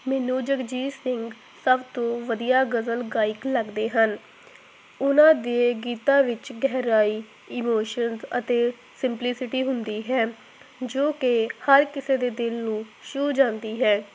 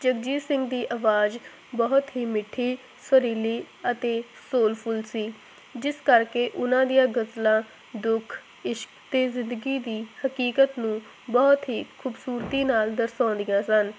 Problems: constant background noise